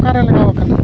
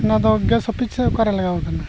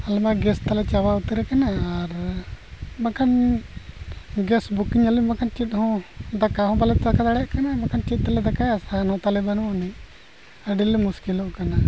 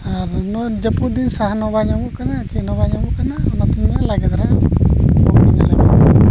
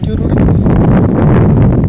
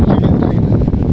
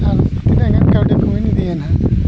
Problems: constant background noise, low volume